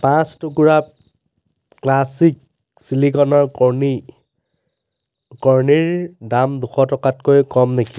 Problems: background sounds at intervals